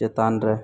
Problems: constant background noise